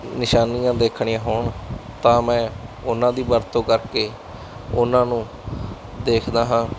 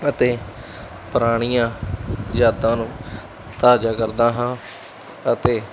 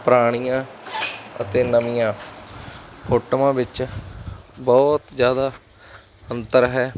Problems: constant background noise